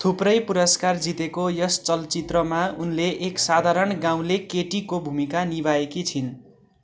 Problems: none marked